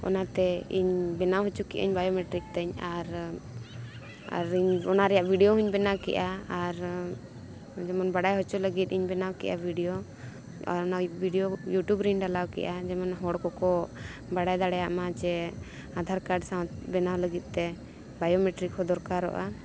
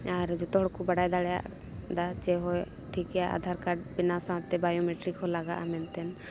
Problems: constant background noise, continuous background conversations